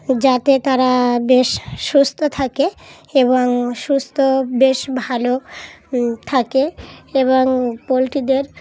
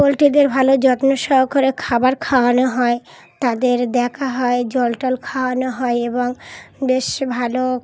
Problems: constant background noise